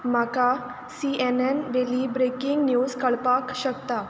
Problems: constant background noise